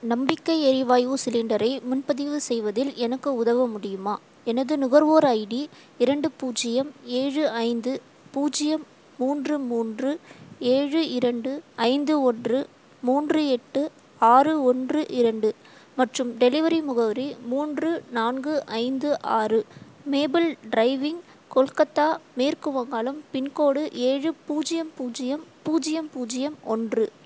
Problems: constant background noise